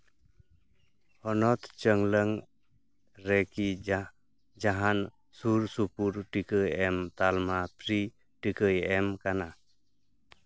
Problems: background sounds at intervals